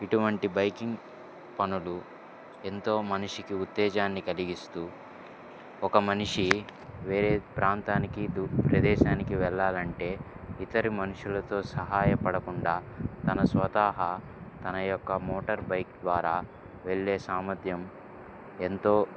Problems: background sounds at intervals